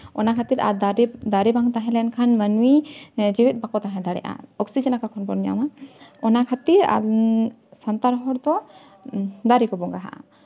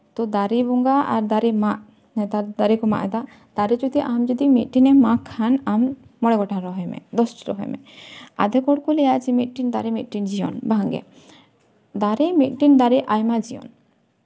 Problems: constant background noise